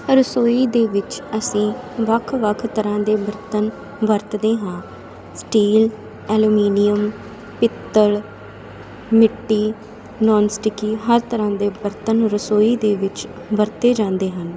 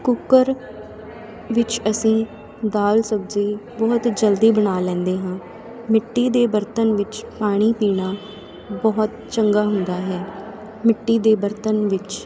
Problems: constant background noise, continuous background conversations